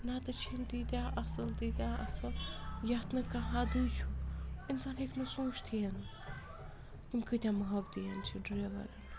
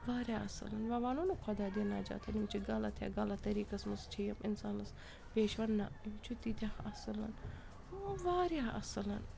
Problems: constant background noise, background conversations at intervals